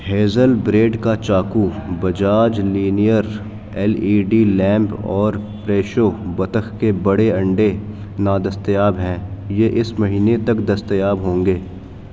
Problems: constant background noise, background conversations at intervals